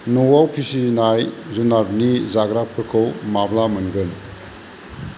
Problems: constant background noise